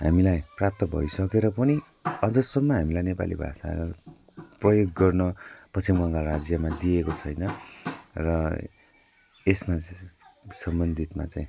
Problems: constant background noise